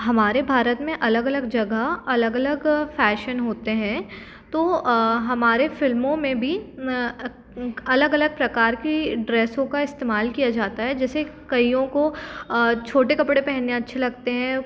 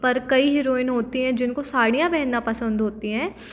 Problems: constant background noise